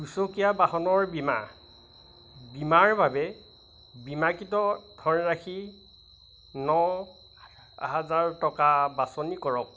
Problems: none marked